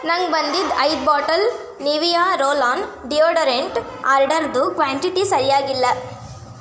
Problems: constant background noise